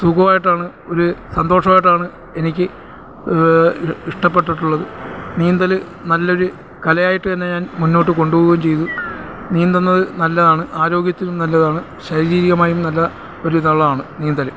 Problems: none marked